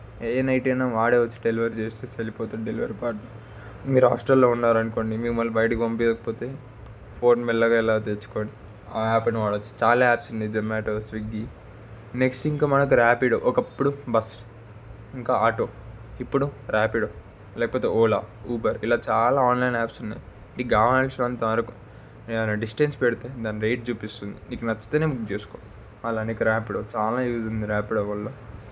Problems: constant background noise